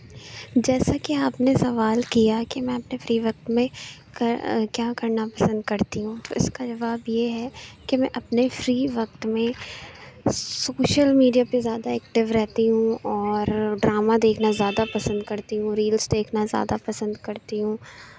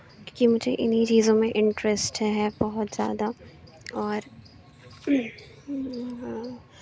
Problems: constant background noise